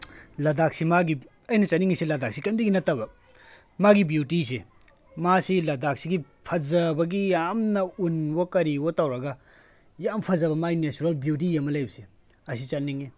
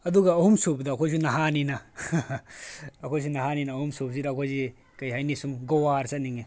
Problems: background conversations at intervals